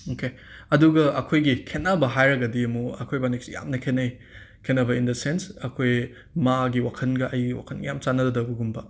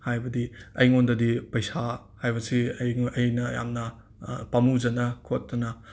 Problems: none marked